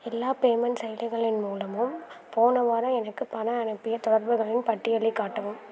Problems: none marked